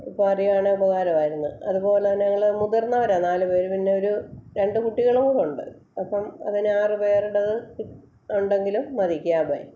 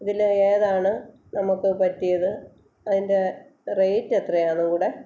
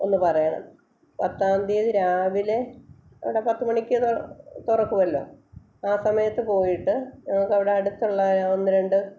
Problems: none marked